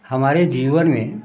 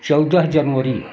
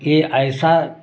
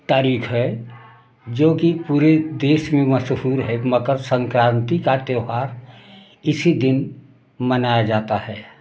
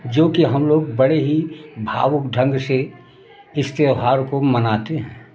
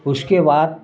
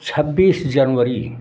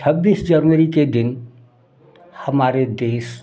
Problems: background sounds at intervals, background conversations at intervals